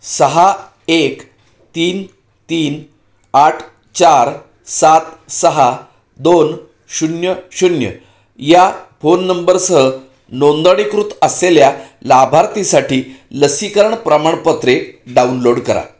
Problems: none marked